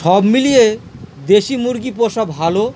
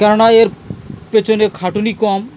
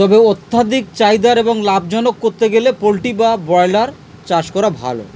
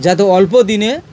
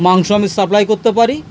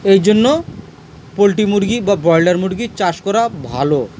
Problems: constant background noise, background conversations at intervals